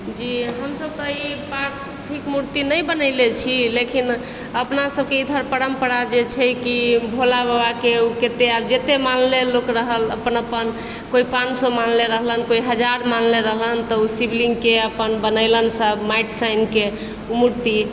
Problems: constant background noise